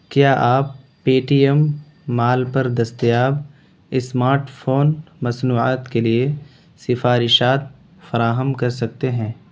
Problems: constant background noise